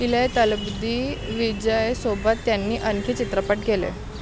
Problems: constant background noise, background conversations at intervals